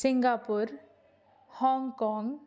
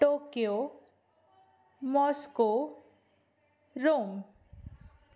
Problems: background sounds at intervals